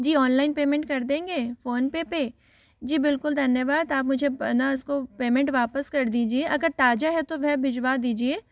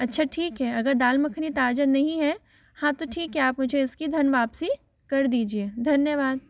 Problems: background sounds at intervals, echo